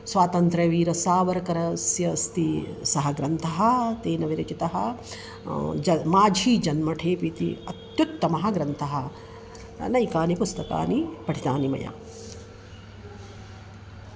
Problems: constant background noise